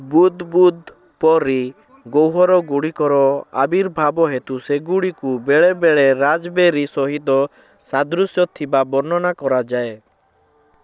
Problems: constant background noise